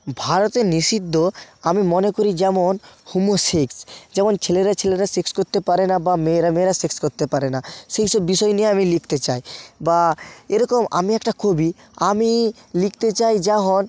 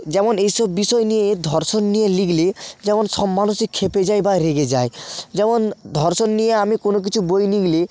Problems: none marked